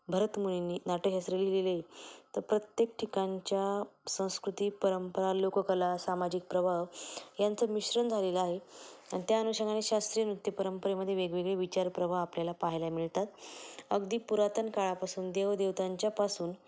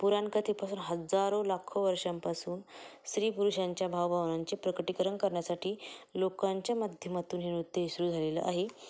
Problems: background sounds at intervals, low volume